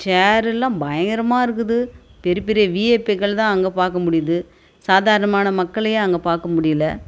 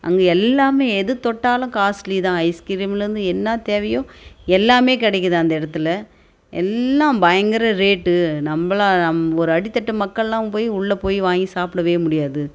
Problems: none marked